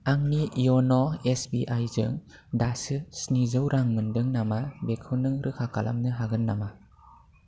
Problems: none marked